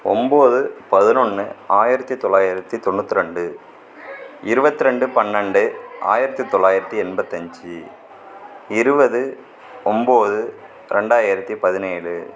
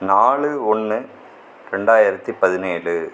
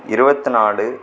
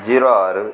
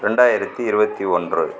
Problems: background conversations at intervals